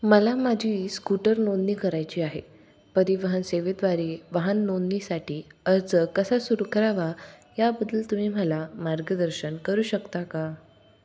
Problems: background sounds at intervals